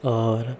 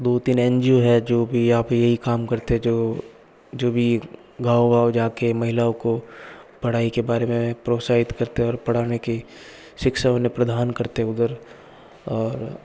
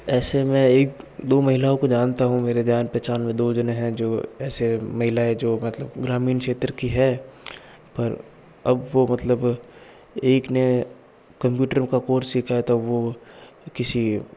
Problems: background sounds at intervals, background conversations at intervals